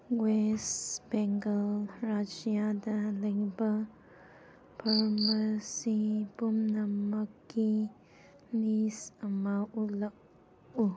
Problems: none marked